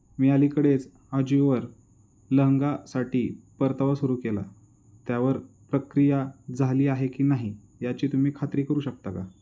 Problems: none marked